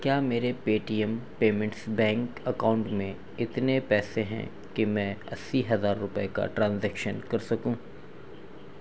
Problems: constant background noise